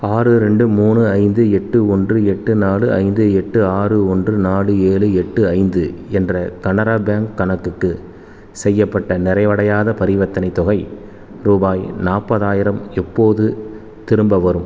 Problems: constant background noise